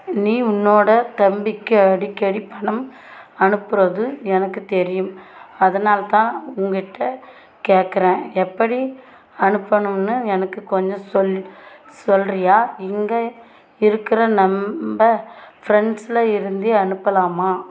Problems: constant background noise